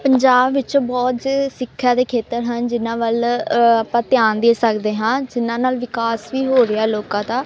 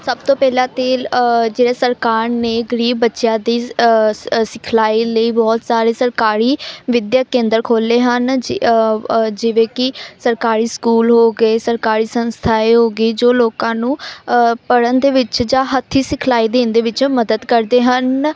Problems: none marked